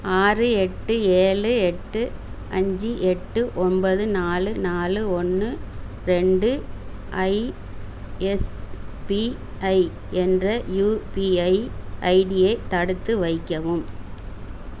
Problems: constant background noise